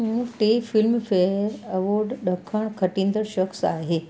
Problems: constant background noise